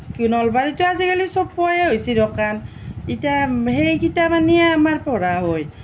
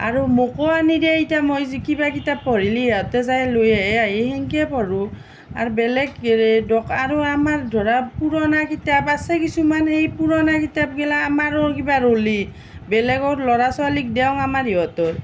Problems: none marked